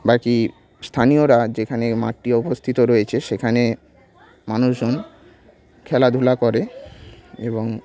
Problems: background sounds at intervals, continuous background conversations